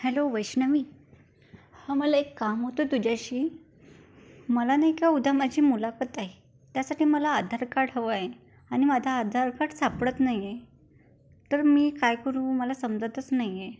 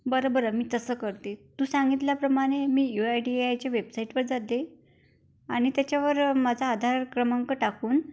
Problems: none marked